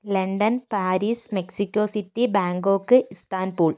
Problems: none marked